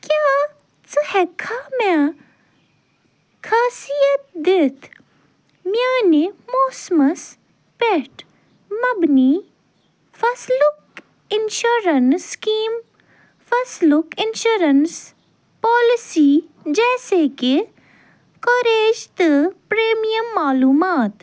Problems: none marked